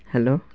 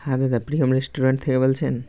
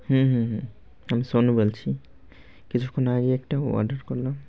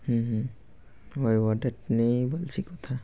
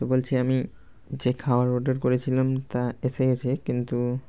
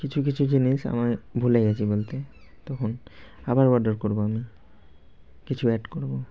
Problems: constant background noise